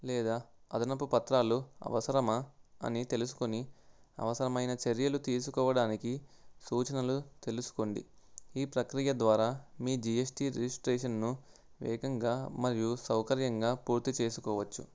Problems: none marked